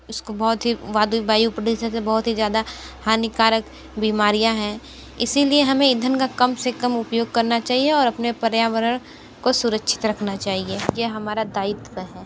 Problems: background sounds at intervals